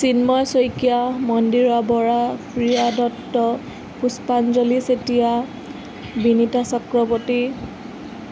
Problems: constant background noise